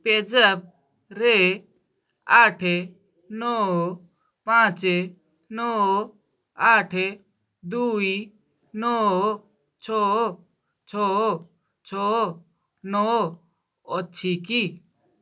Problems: none marked